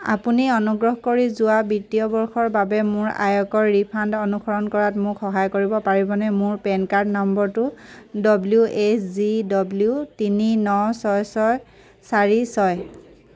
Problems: none marked